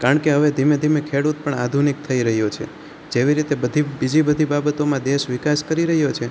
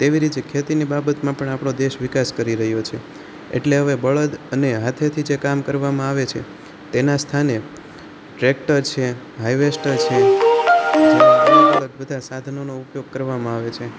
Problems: none marked